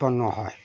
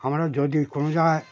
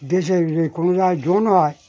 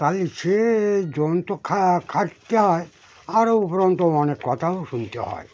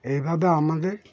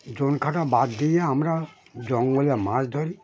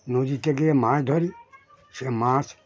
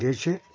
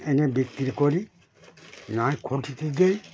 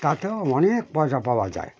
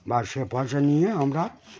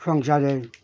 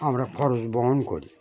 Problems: constant background noise, continuous background conversations